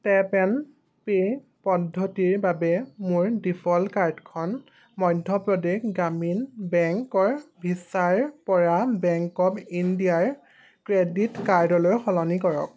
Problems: background sounds at intervals